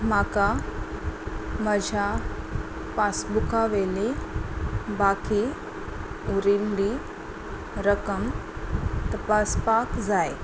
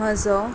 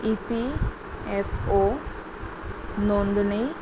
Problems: constant background noise